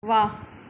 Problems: none marked